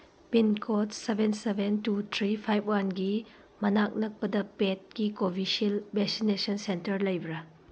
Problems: background sounds at intervals